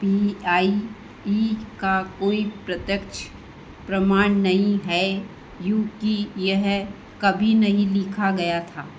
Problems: constant background noise